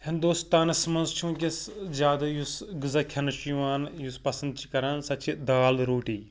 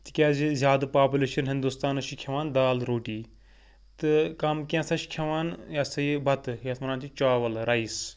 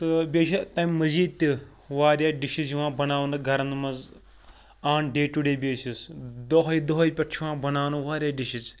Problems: none marked